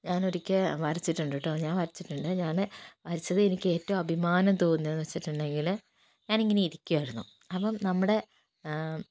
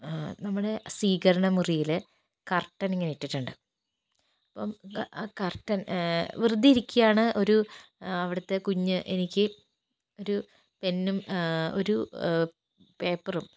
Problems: background sounds at intervals, low volume